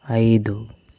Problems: none marked